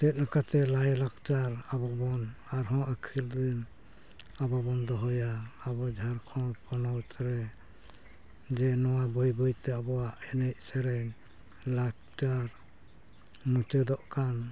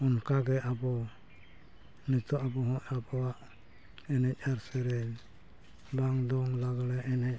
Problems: background sounds at intervals